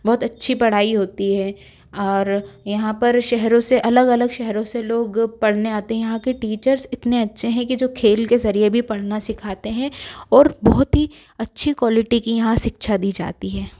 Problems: none marked